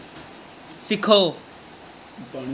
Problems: none marked